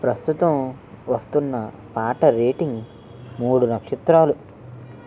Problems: constant background noise